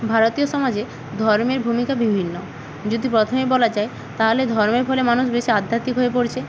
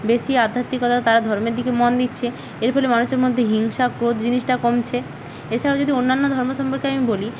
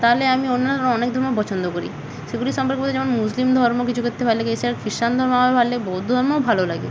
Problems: none marked